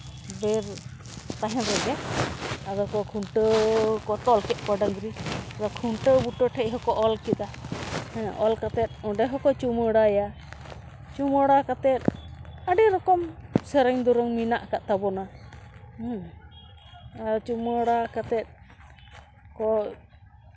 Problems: background sounds at intervals